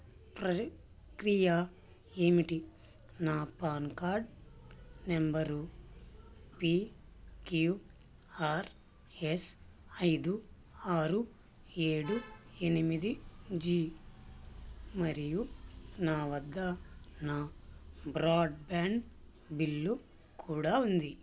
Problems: constant background noise